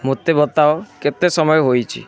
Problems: constant background noise